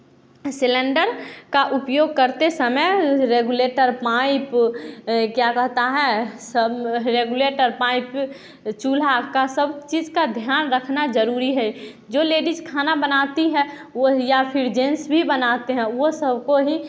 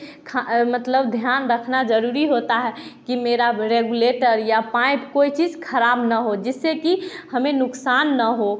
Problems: background sounds at intervals, continuous background conversations, echo